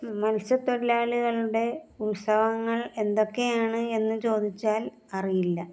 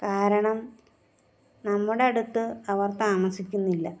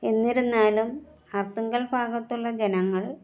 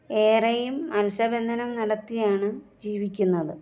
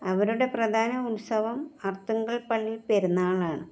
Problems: background sounds at intervals